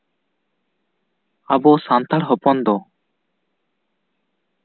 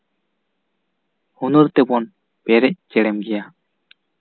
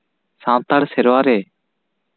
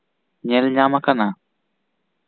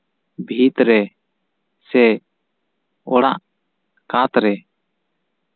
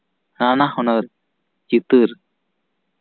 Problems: none marked